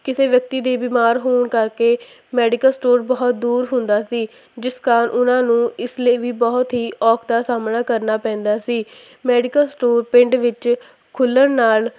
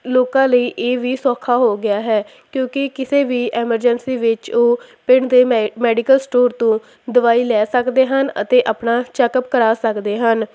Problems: constant background noise